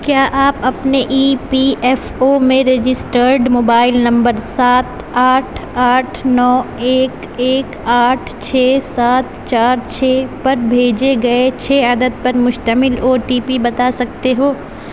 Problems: none marked